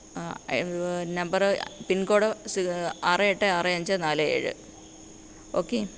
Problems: none marked